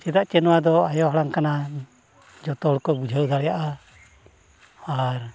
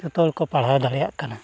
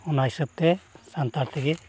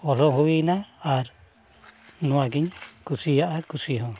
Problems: background sounds at intervals, background conversations at intervals